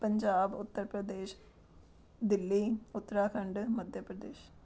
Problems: background sounds at intervals